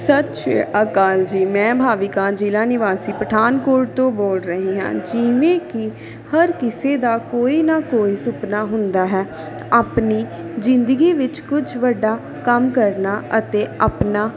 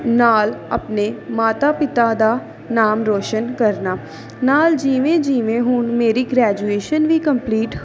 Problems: continuous background conversations